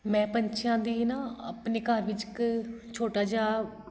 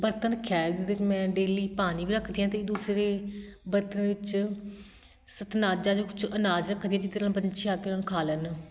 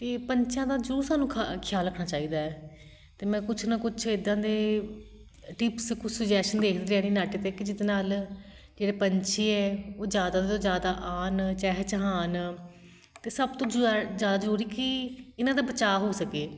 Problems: constant background noise